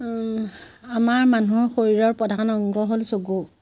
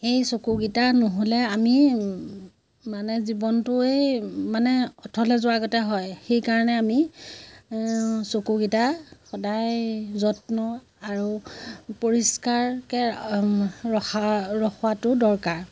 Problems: constant background noise